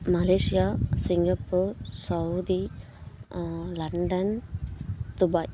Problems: none marked